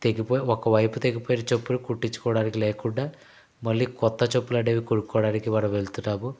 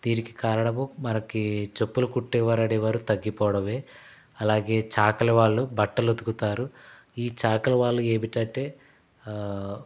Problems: constant background noise